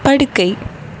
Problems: background sounds at intervals